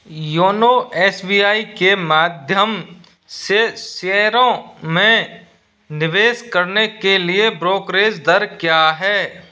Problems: none marked